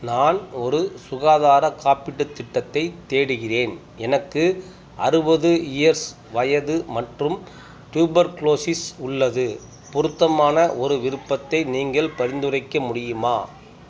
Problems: background sounds at intervals, background conversations at intervals